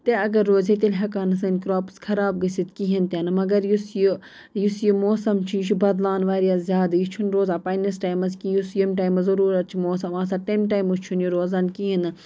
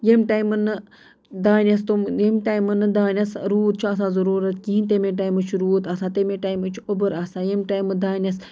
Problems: none marked